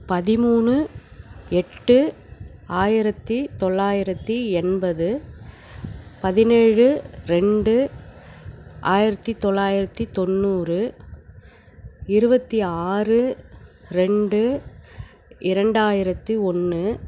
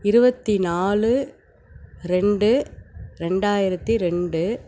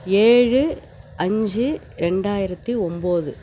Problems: none marked